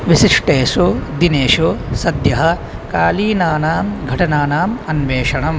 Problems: none marked